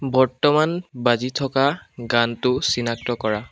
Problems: background sounds at intervals